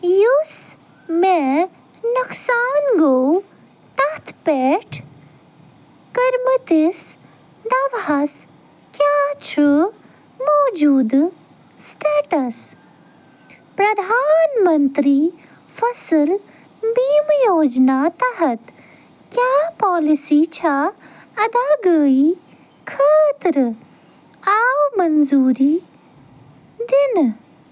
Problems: none marked